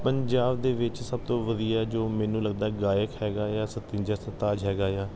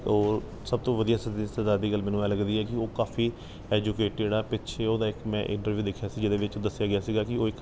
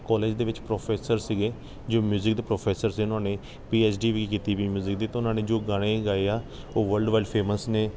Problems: background sounds at intervals